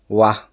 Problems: none marked